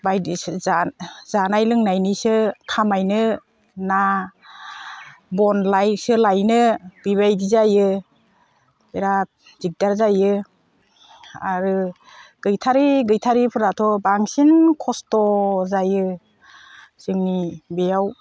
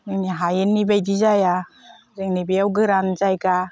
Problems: none marked